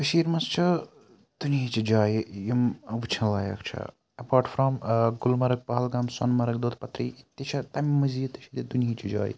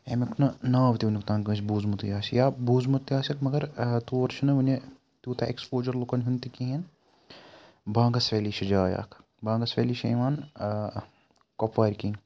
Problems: none marked